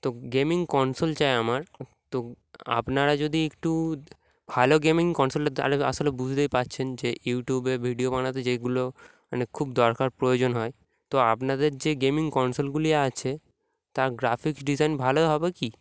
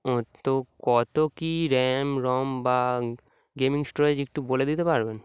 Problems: background sounds at intervals